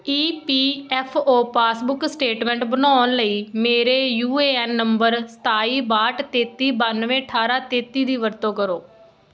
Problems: none marked